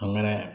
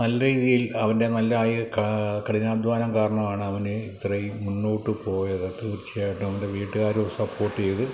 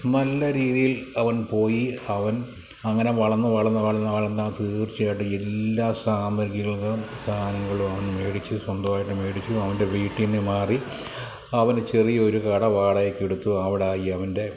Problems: none marked